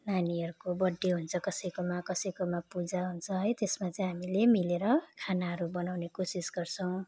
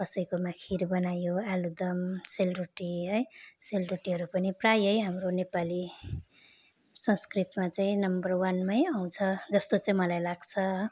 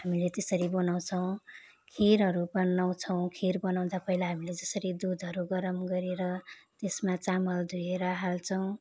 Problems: constant background noise